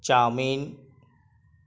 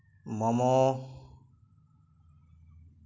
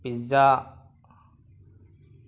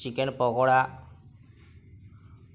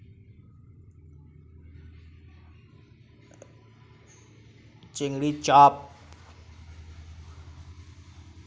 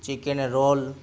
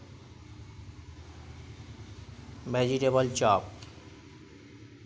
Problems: none marked